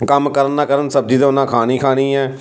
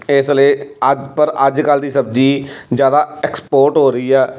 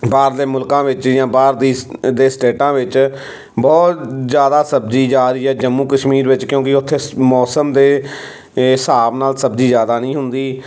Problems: background sounds at intervals